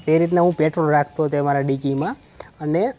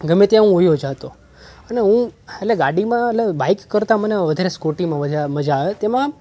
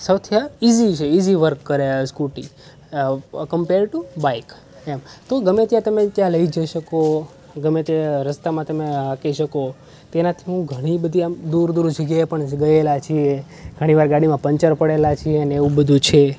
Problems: none marked